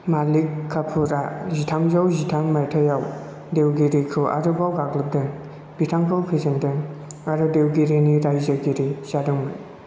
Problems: constant background noise